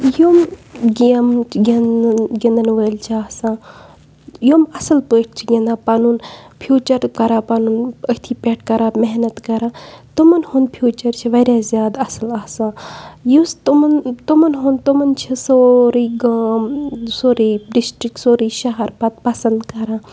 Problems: none marked